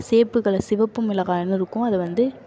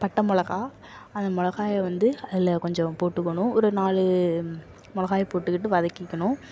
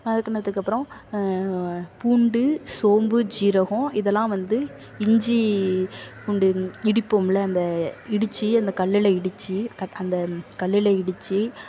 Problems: constant background noise, background conversations at intervals